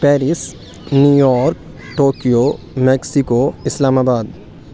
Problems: none marked